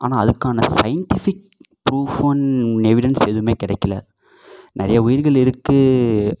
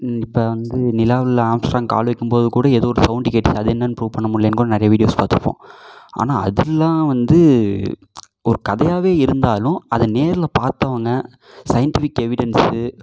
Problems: echo